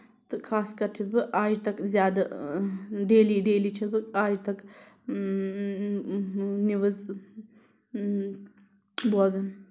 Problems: constant background noise